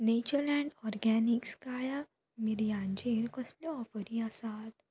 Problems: low volume